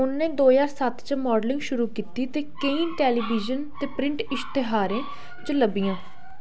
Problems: none marked